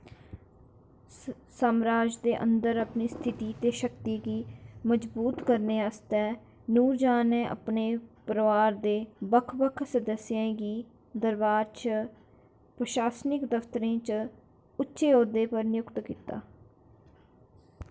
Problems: constant background noise